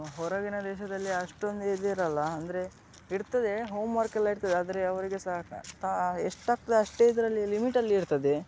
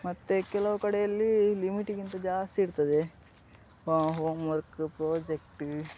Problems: background sounds at intervals